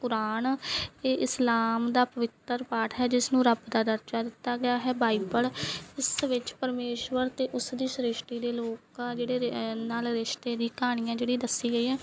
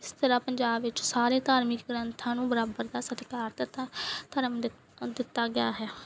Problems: background sounds at intervals